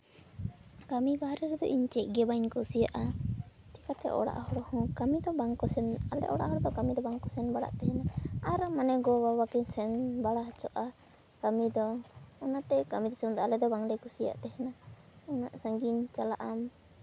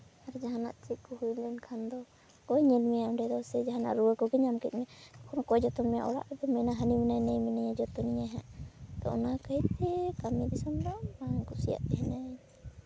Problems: constant background noise, low volume